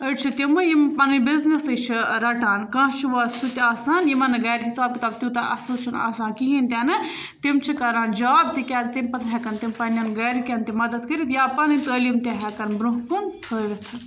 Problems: none marked